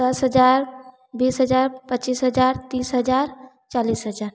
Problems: none marked